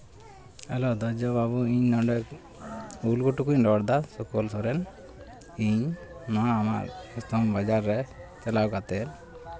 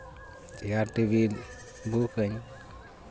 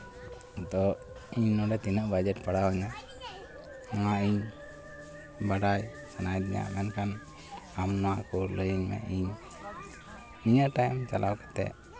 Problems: constant background noise, background conversations at intervals